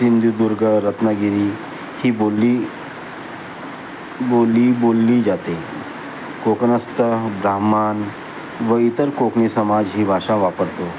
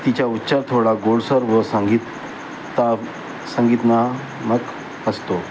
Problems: constant background noise